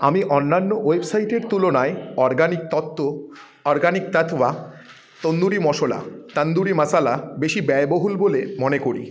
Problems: background sounds at intervals, continuous background conversations